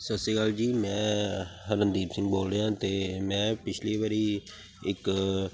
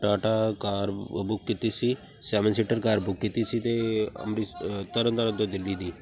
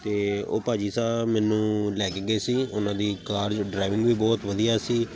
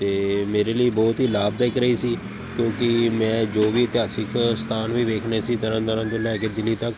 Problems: constant background noise